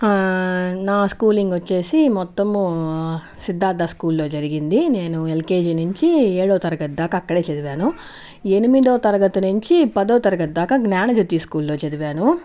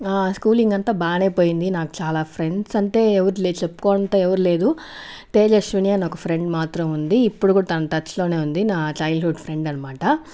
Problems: background conversations at intervals